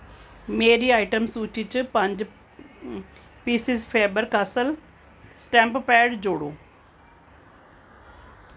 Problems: none marked